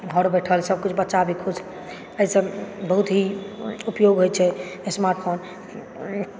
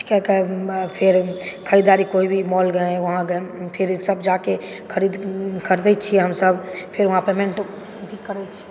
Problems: background sounds at intervals, background conversations at intervals